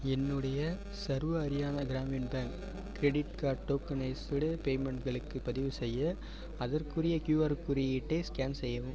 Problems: constant background noise